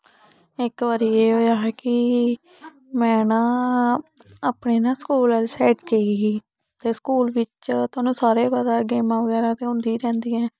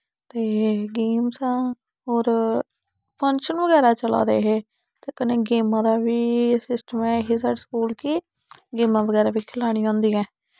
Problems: none marked